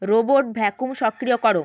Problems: constant background noise